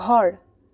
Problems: background conversations at intervals